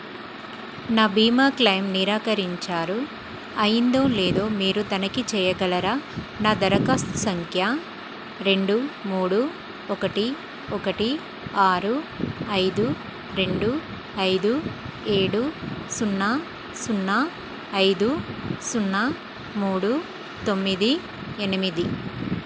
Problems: constant background noise